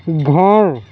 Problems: none marked